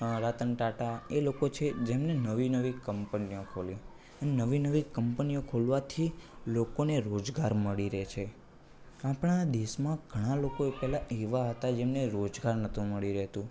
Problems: background conversations at intervals